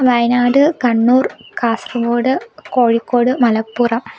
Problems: background sounds at intervals